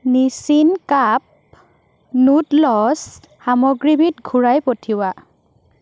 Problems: constant background noise